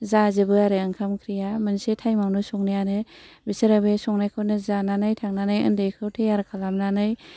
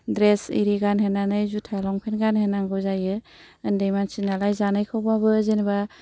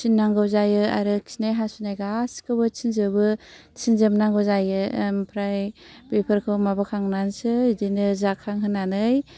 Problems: none marked